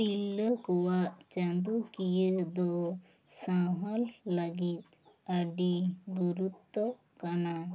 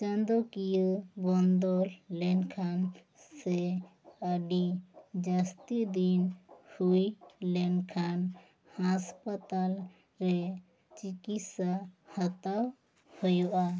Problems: none marked